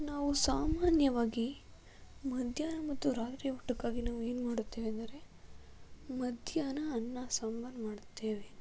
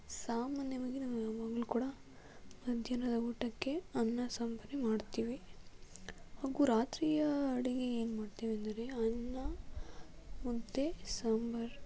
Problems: low volume